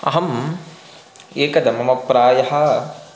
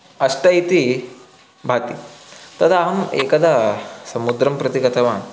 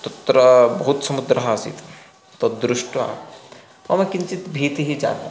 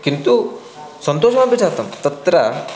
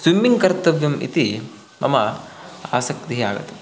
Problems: constant background noise, continuous background conversations